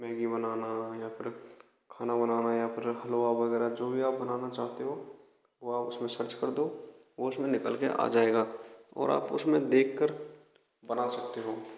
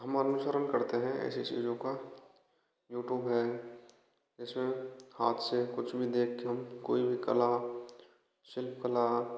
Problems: constant background noise